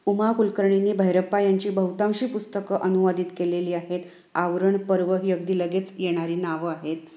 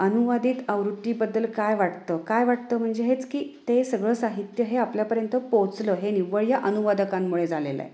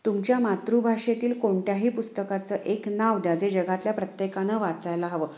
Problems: constant background noise